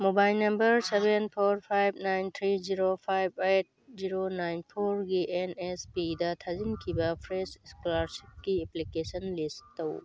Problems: none marked